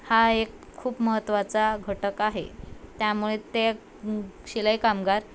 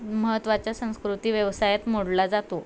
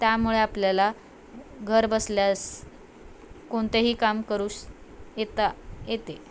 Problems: constant background noise, background conversations at intervals